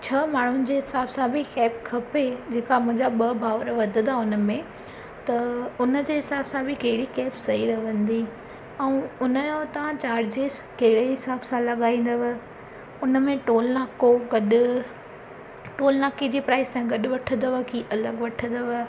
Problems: constant background noise